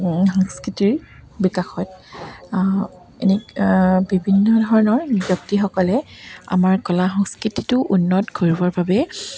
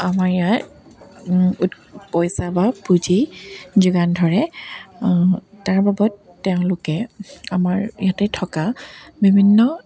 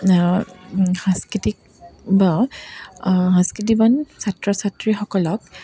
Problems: background sounds at intervals